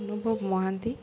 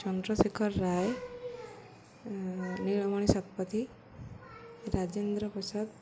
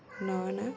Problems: constant background noise, continuous background conversations